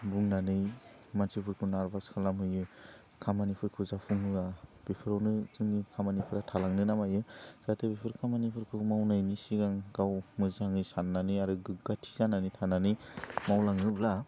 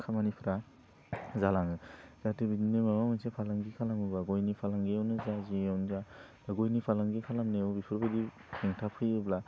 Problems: low volume